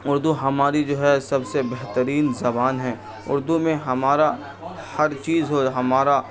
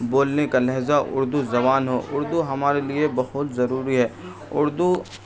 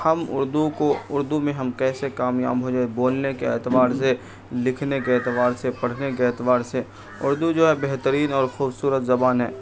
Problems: background sounds at intervals, continuous background conversations